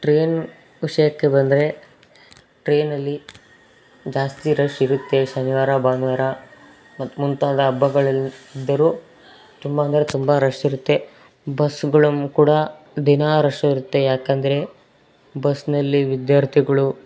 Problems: constant background noise